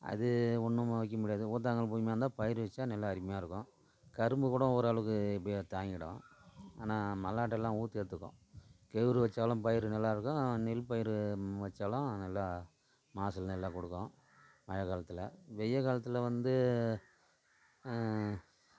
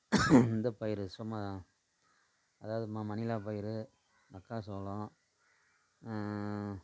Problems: constant background noise, low volume